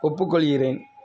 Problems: background sounds at intervals